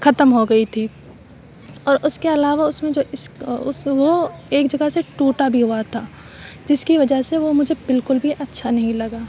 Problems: constant background noise